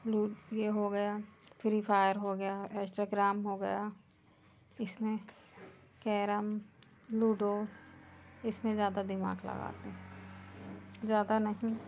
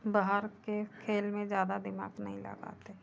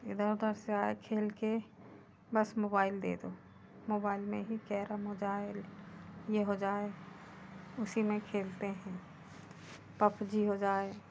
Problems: constant background noise